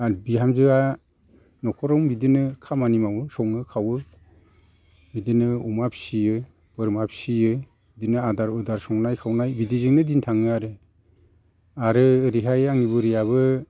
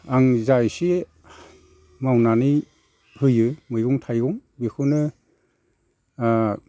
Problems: constant background noise